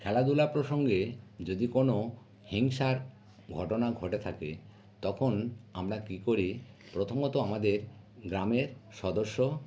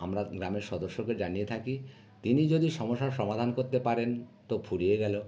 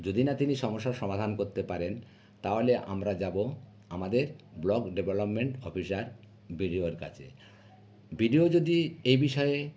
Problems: none marked